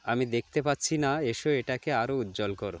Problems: none marked